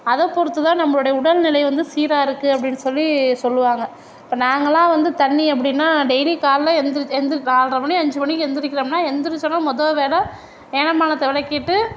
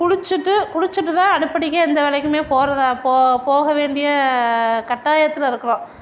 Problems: background sounds at intervals